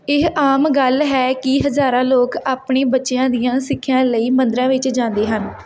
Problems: background conversations at intervals